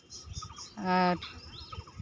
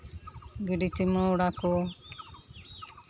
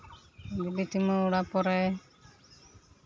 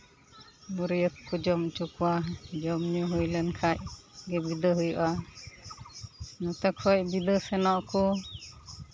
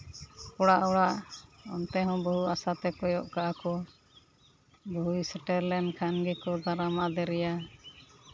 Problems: none marked